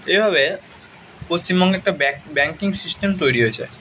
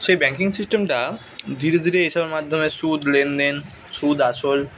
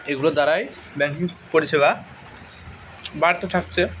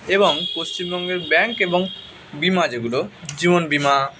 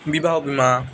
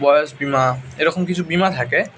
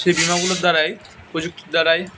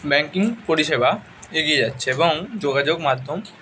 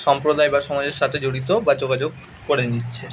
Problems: constant background noise